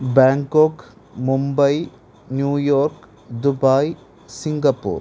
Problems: constant background noise